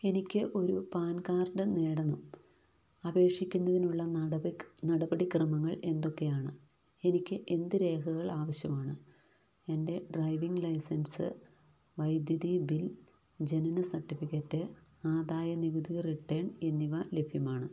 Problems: low volume